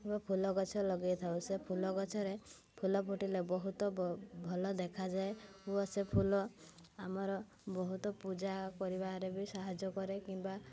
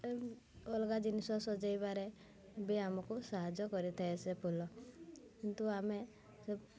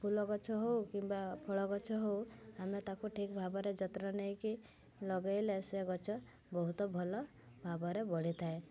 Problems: constant background noise, continuous background conversations